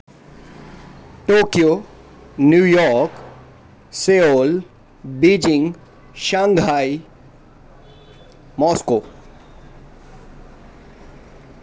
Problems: none marked